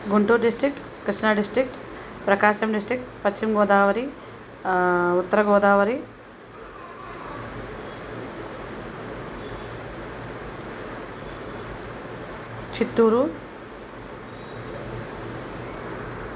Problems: constant background noise